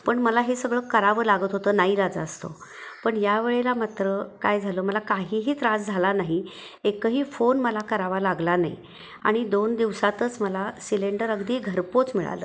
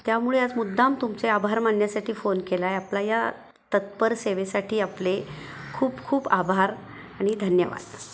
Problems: none marked